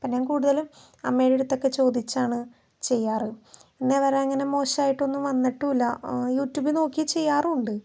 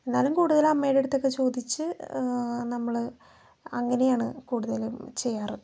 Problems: none marked